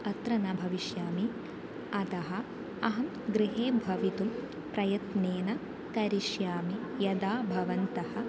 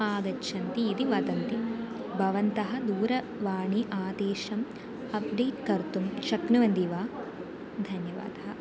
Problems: constant background noise